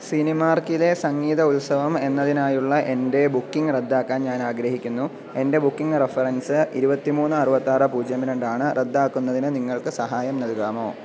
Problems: constant background noise